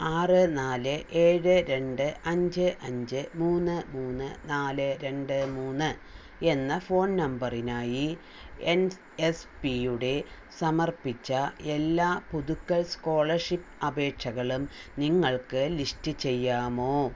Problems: none marked